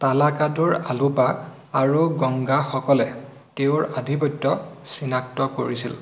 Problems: constant background noise